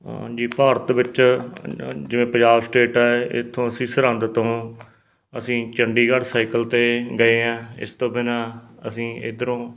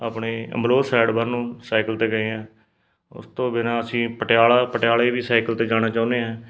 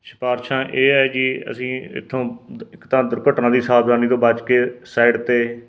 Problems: background sounds at intervals